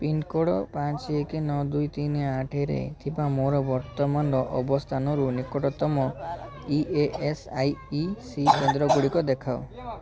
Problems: constant background noise, continuous background conversations